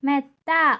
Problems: none marked